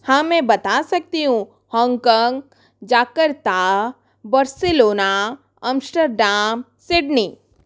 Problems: none marked